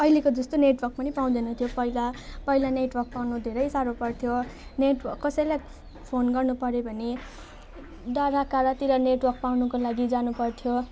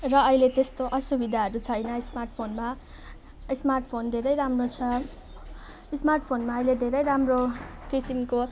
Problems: constant background noise